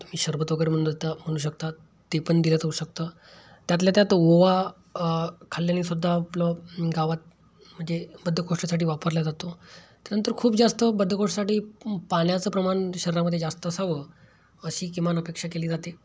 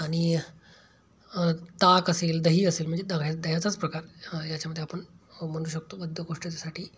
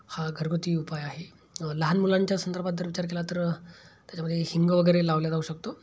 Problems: background sounds at intervals